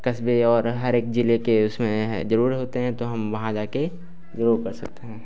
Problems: none marked